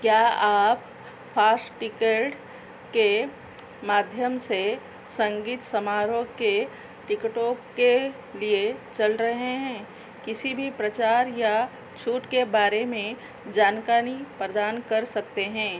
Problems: constant background noise